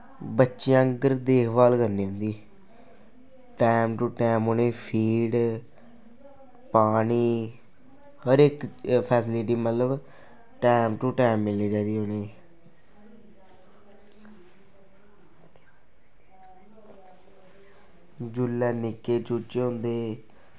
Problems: constant background noise